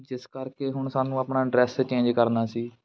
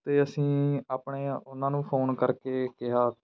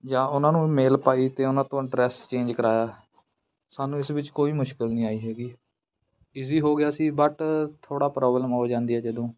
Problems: background sounds at intervals